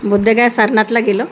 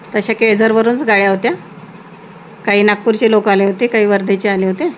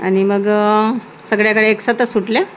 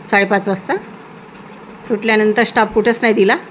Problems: constant background noise